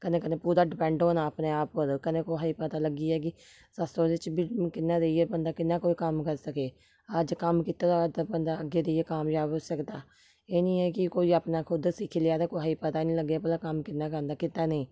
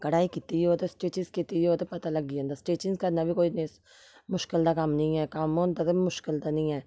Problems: none marked